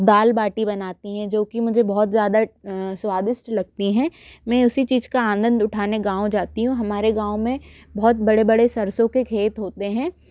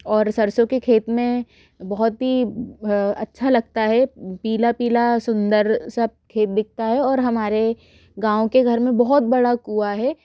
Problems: background sounds at intervals